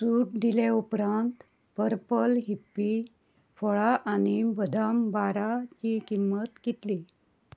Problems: background sounds at intervals